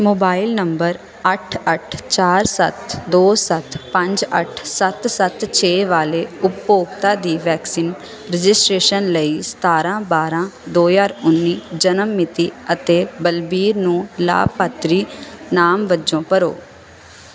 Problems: none marked